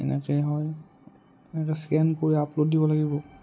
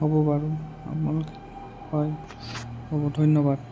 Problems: none marked